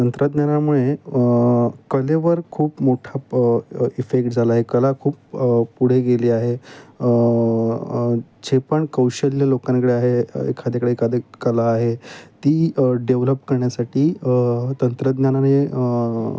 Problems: none marked